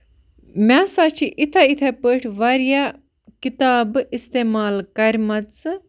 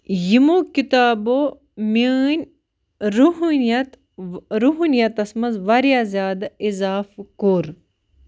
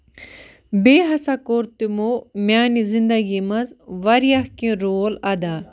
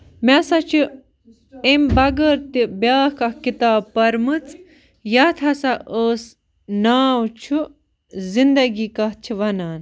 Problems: constant background noise